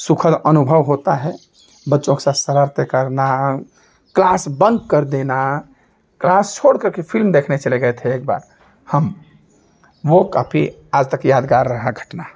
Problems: none marked